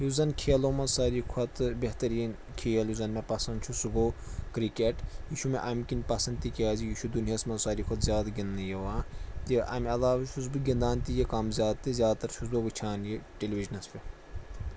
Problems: none marked